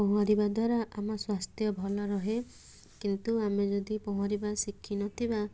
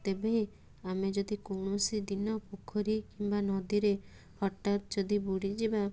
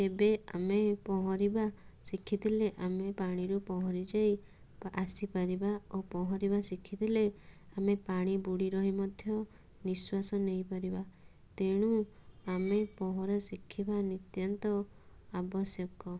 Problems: none marked